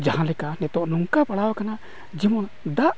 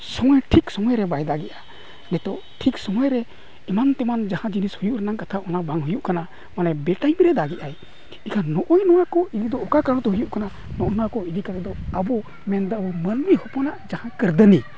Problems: background sounds at intervals